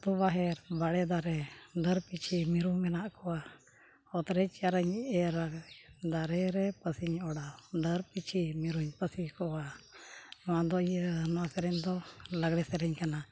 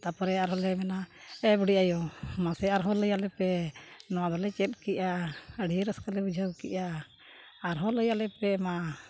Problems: none marked